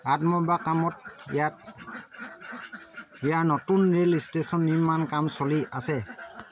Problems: constant background noise